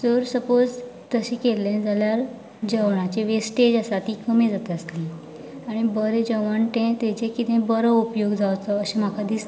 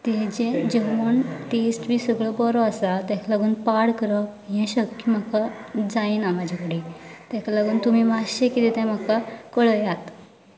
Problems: background sounds at intervals, continuous background conversations